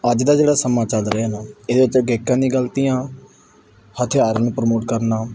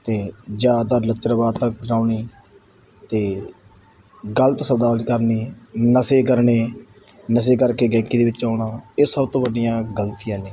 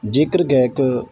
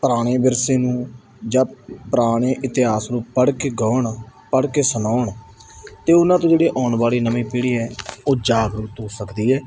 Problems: none marked